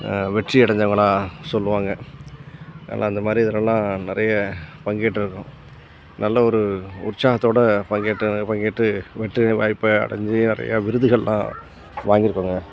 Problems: background sounds at intervals